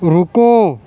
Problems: constant background noise